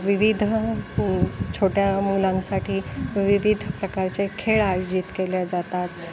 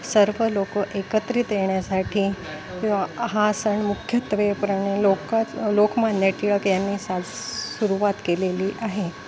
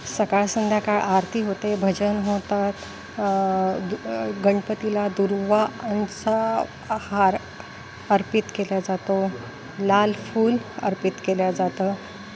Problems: constant background noise, background conversations at intervals